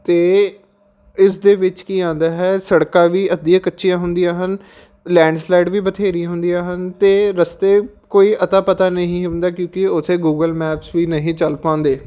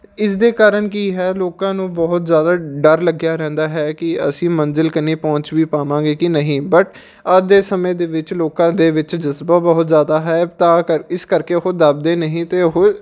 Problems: background sounds at intervals